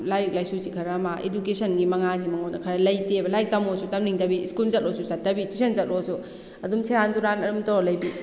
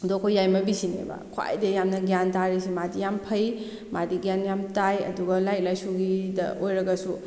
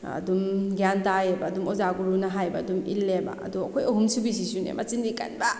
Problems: none marked